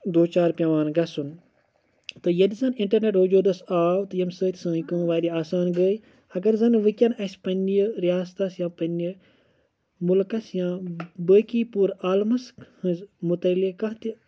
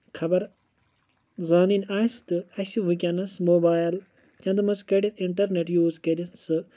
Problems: none marked